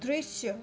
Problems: constant background noise